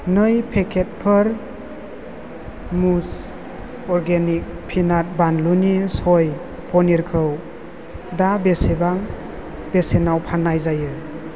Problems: none marked